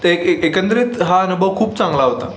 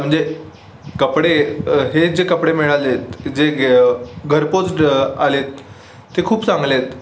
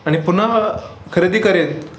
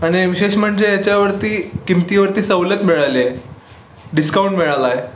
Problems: constant background noise